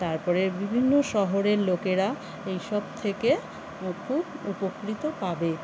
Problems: constant background noise